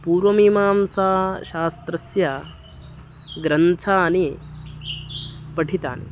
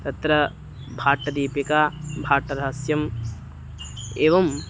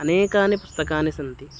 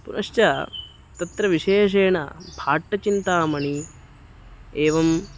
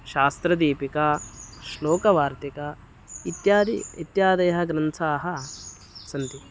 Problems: constant background noise